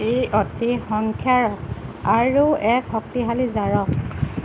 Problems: none marked